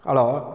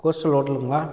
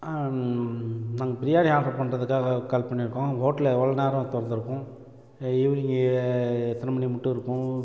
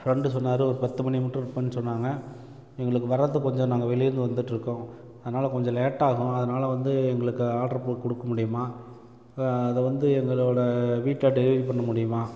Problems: constant background noise